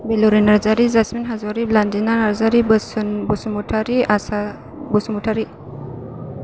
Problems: constant background noise